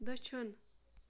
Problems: background sounds at intervals